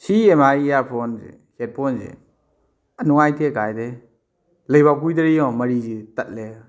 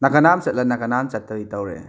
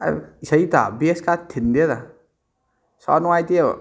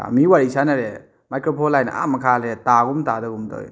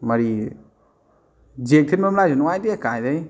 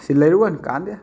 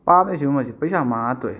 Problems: background sounds at intervals